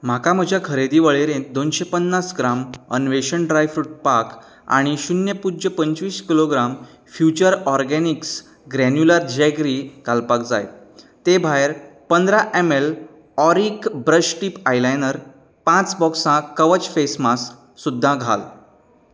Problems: none marked